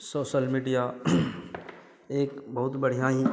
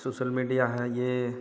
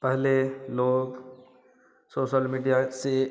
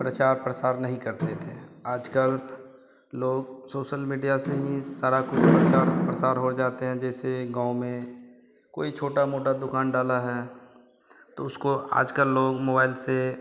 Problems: none marked